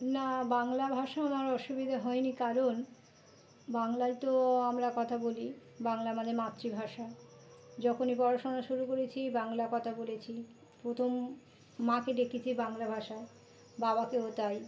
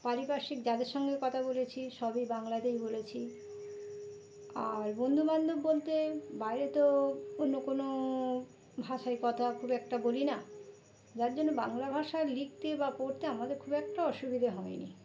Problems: constant background noise, background conversations at intervals